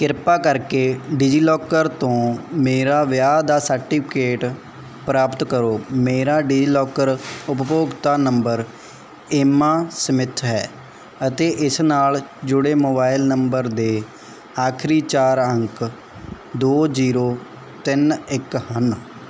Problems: background sounds at intervals